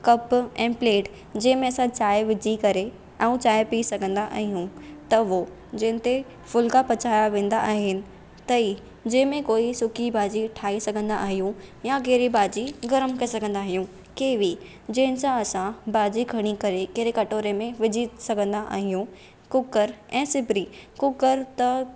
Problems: none marked